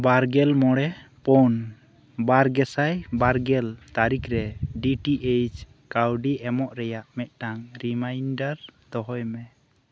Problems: low volume